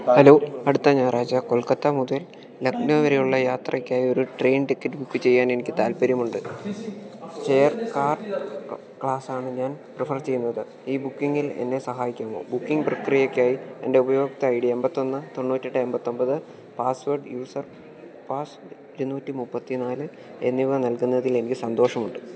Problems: continuous background conversations